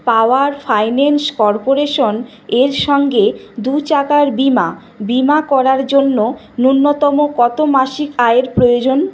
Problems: none marked